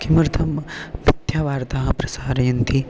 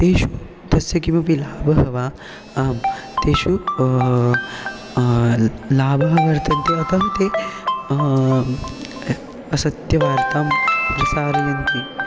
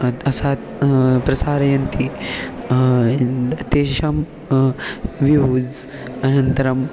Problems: background sounds at intervals